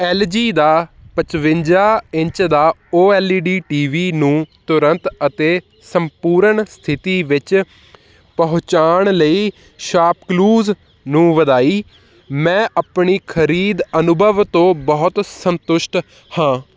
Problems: none marked